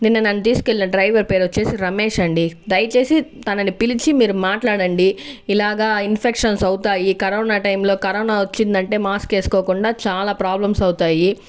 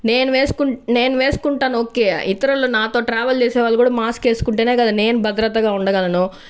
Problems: background sounds at intervals